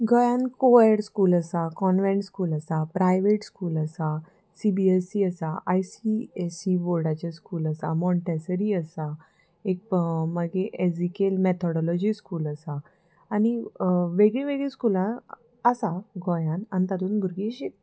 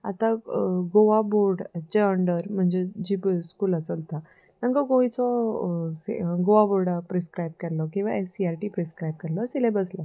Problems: none marked